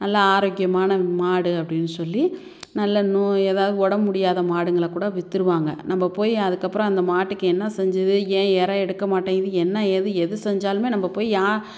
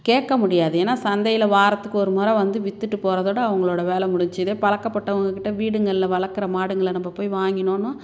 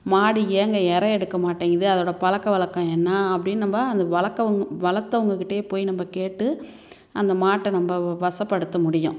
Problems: none marked